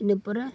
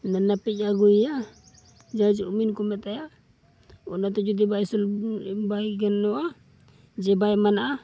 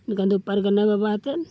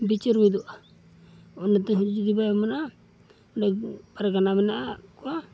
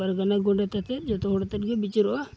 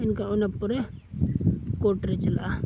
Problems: background sounds at intervals